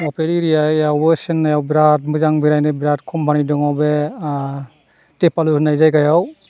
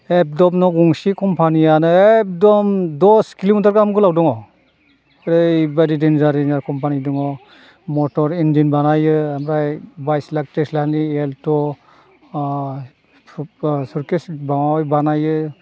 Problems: background sounds at intervals